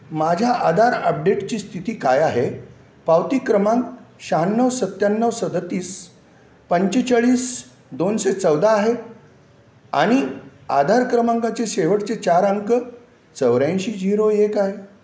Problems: none marked